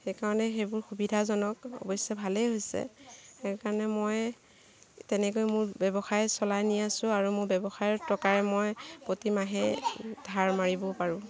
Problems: constant background noise, background conversations at intervals